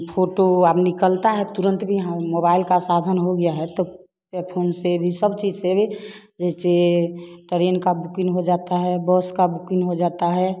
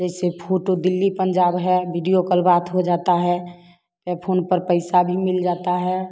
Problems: constant background noise